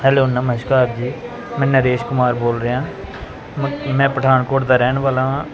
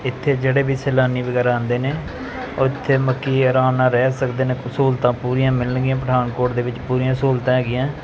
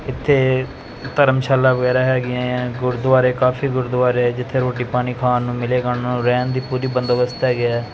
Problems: none marked